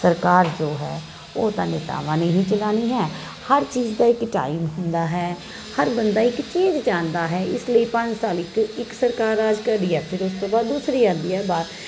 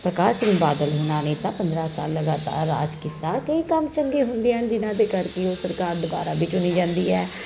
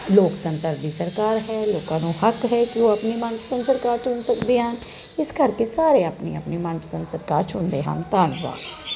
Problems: constant background noise